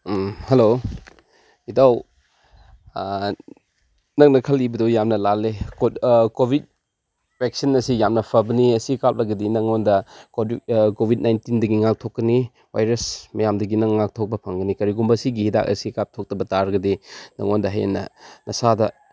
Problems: none marked